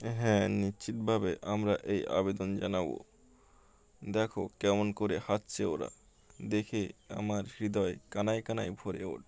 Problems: constant background noise